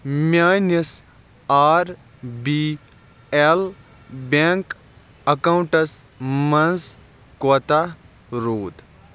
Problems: background sounds at intervals